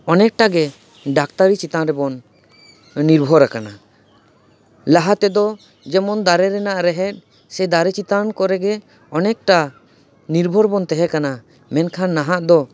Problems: none marked